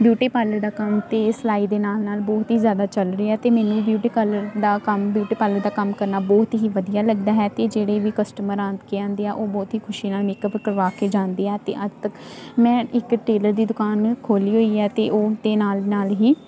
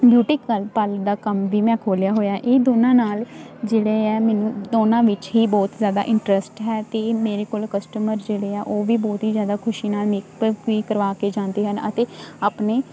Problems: none marked